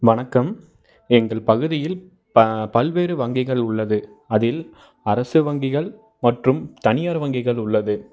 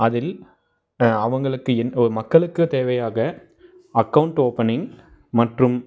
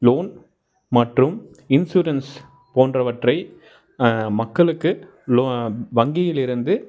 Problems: none marked